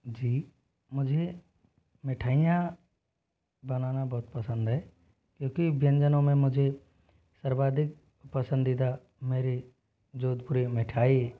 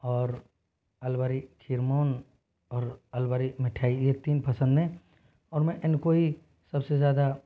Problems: low volume